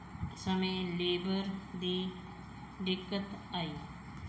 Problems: background sounds at intervals